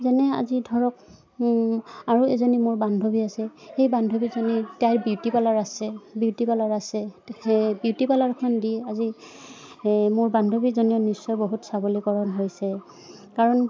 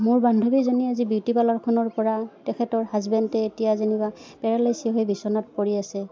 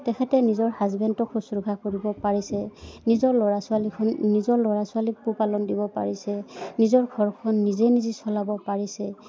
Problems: background sounds at intervals